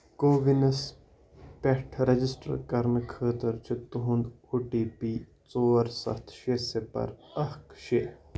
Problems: background sounds at intervals